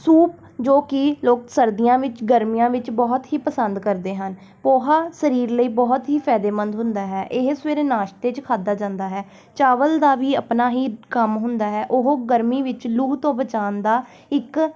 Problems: background sounds at intervals